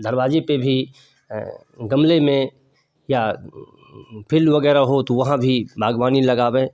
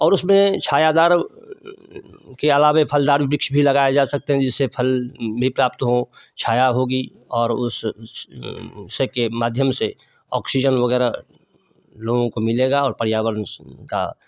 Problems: none marked